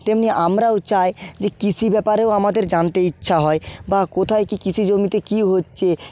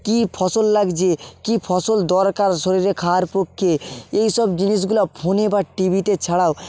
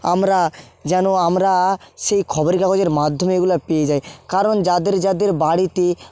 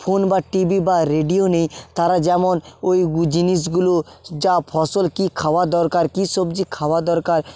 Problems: background sounds at intervals